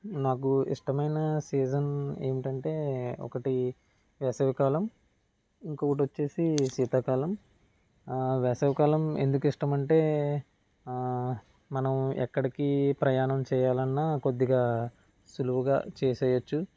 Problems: none marked